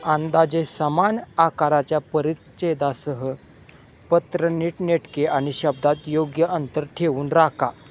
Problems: none marked